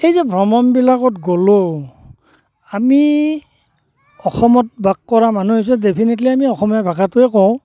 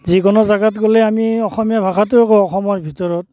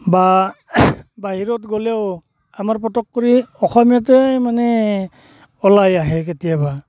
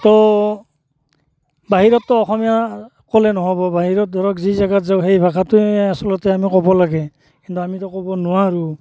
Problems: constant background noise